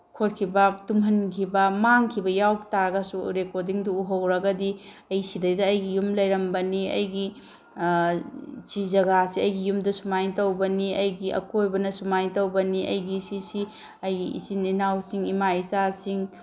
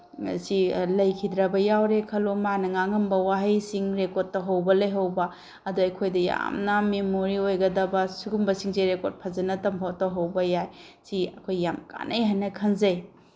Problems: none marked